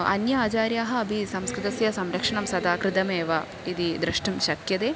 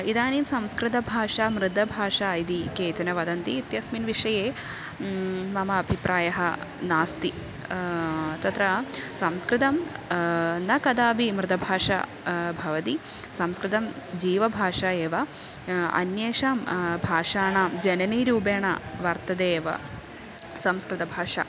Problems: constant background noise, continuous background conversations